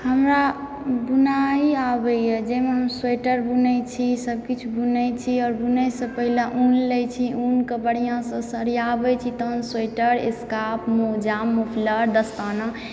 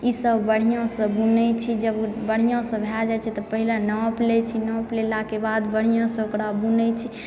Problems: background sounds at intervals